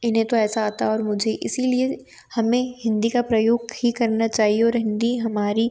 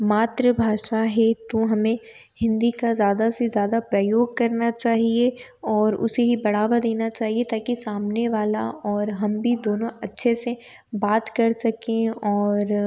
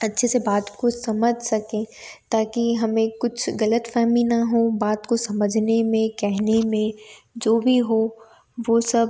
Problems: none marked